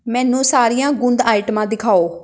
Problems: background sounds at intervals